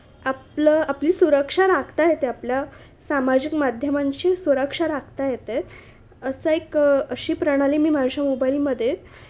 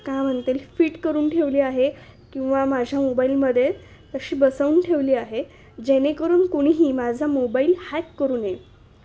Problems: constant background noise